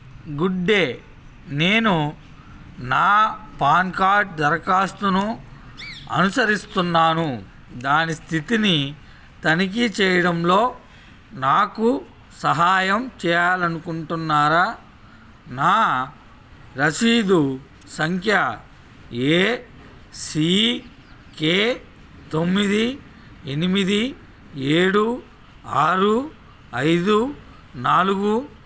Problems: background sounds at intervals